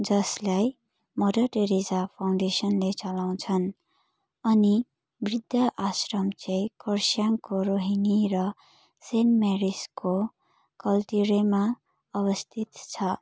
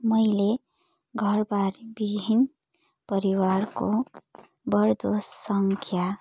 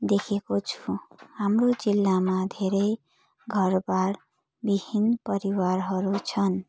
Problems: background sounds at intervals